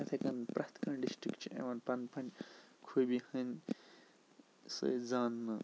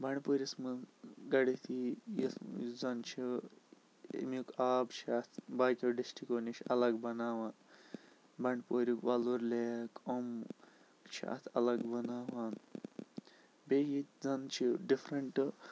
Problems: constant background noise, low volume